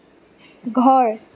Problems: none marked